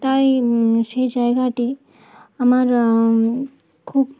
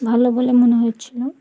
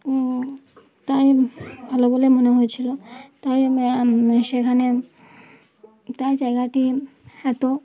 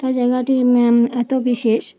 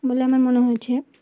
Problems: continuous background conversations